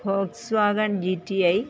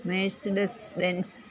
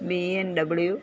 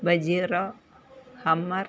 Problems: background conversations at intervals